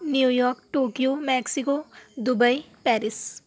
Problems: none marked